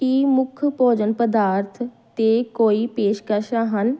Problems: background sounds at intervals